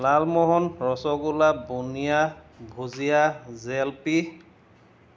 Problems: background sounds at intervals